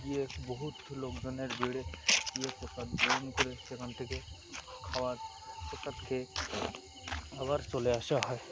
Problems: constant background noise, continuous background conversations